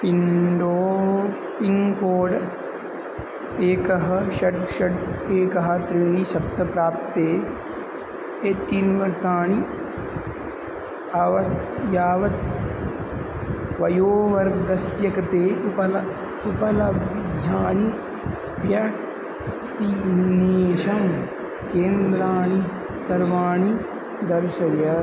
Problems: none marked